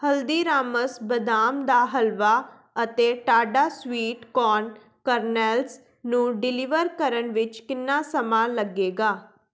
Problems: background sounds at intervals